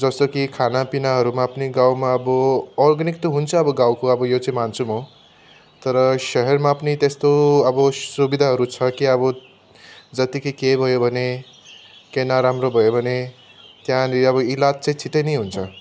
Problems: none marked